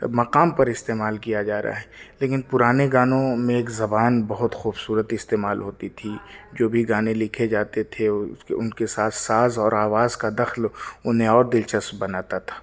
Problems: background sounds at intervals, background conversations at intervals